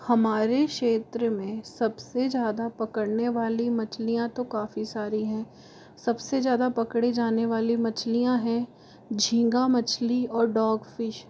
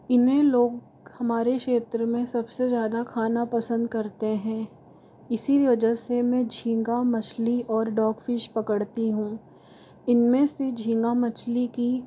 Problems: constant background noise